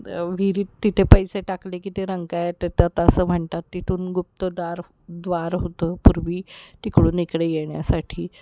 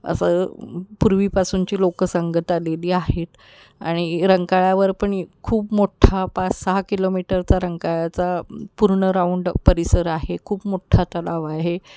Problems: none marked